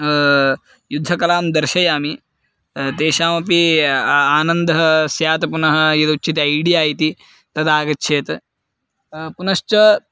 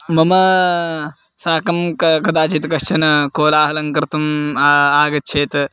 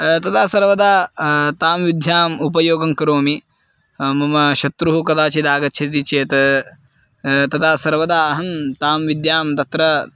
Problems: background sounds at intervals